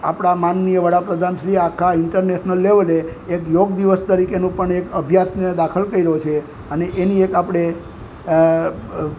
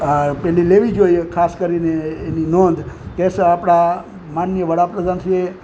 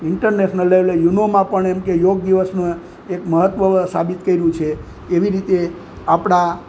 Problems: constant background noise